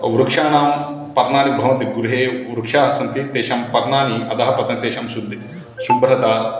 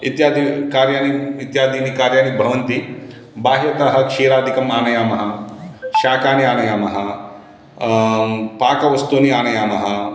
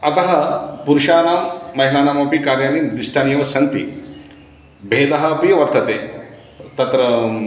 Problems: background sounds at intervals